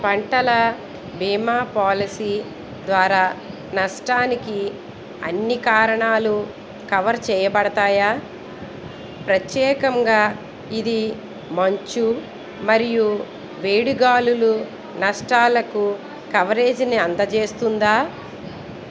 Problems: background conversations at intervals